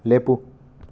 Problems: none marked